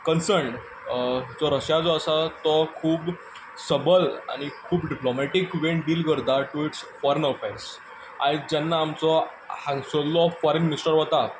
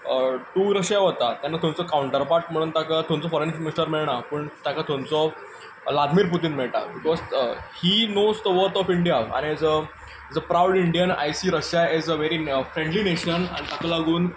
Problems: background sounds at intervals